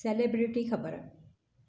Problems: none marked